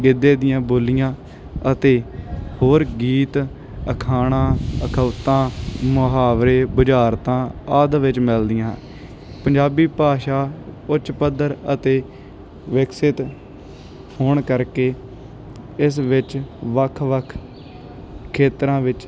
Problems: none marked